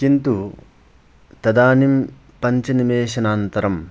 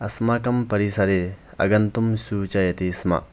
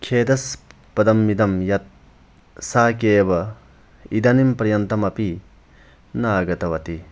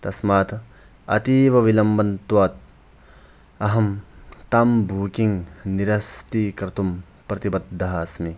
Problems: none marked